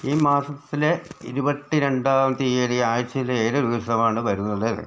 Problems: none marked